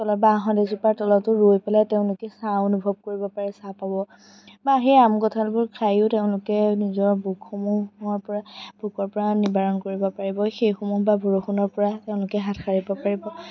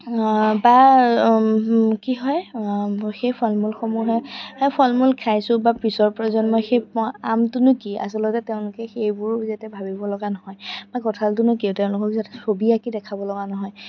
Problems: background sounds at intervals, background conversations at intervals